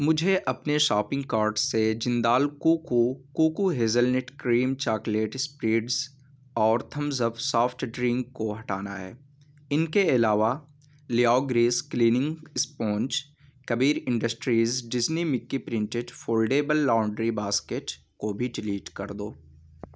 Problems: background sounds at intervals